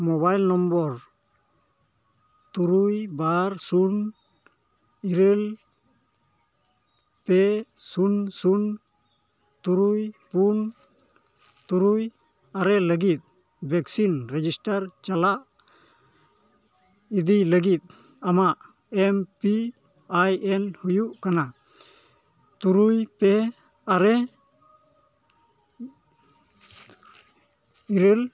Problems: none marked